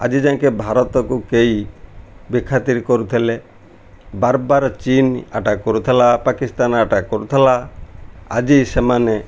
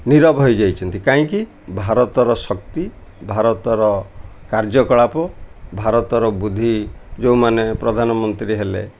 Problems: none marked